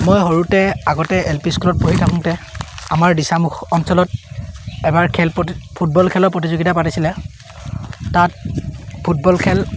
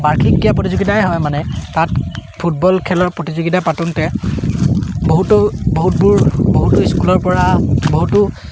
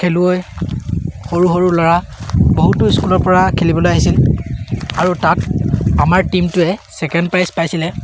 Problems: background sounds at intervals